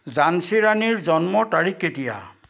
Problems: constant background noise, background conversations at intervals